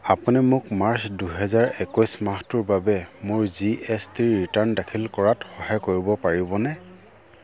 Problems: none marked